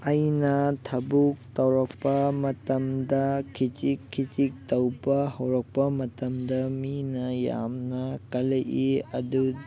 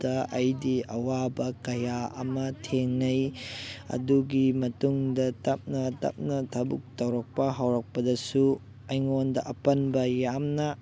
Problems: background conversations at intervals